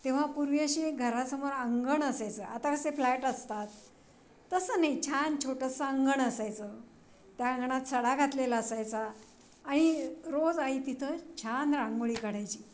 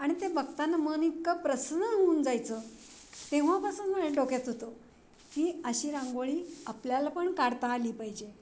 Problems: constant background noise, background conversations at intervals